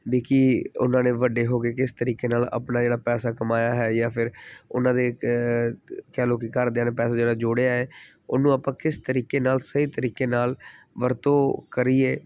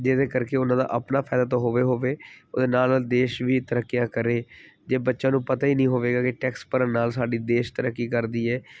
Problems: background sounds at intervals